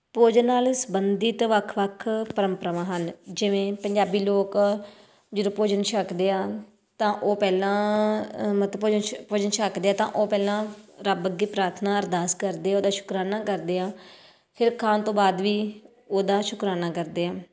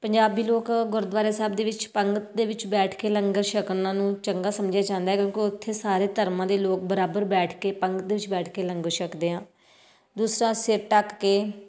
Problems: none marked